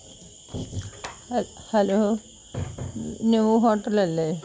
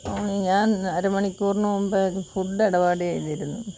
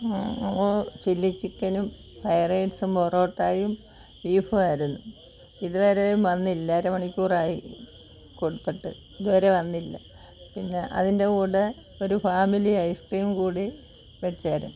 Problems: constant background noise